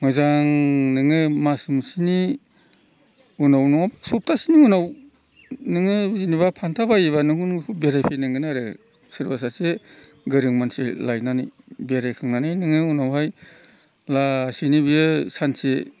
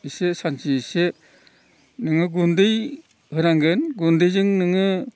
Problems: background sounds at intervals